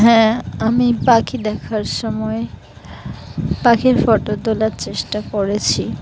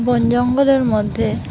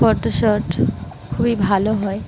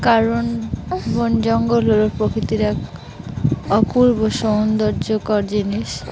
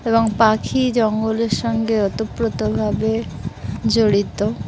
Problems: constant background noise